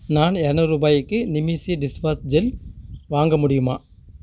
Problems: constant background noise